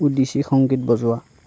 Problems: none marked